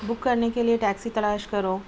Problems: constant background noise, low volume